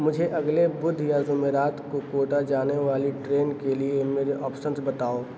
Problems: constant background noise, echo